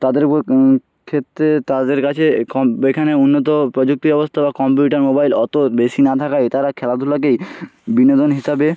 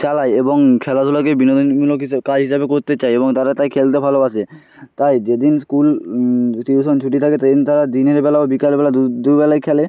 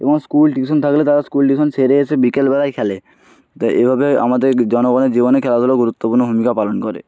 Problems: none marked